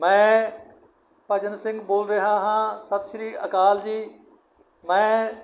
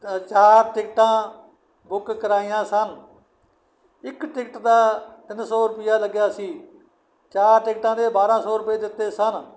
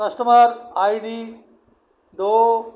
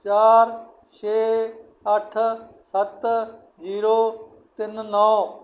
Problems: none marked